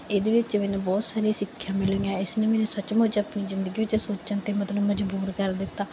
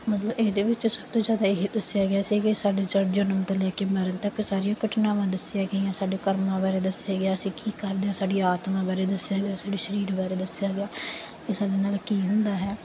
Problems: none marked